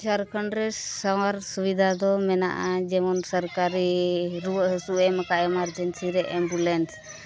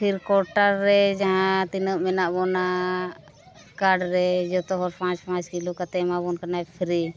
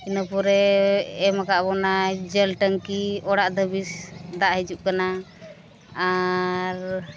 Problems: background sounds at intervals